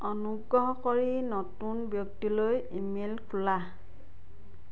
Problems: none marked